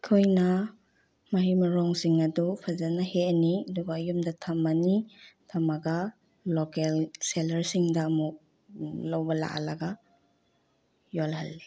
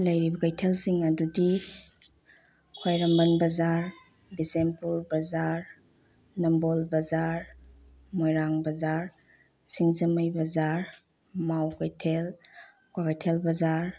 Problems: low volume